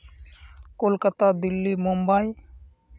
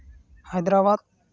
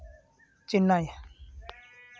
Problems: constant background noise